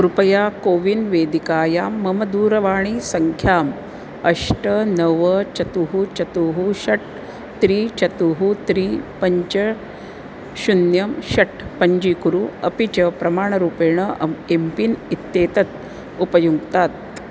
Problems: constant background noise